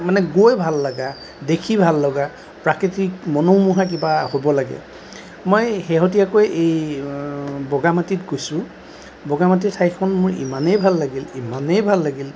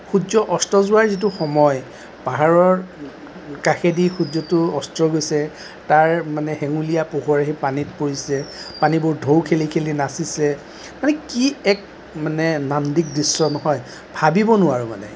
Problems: constant background noise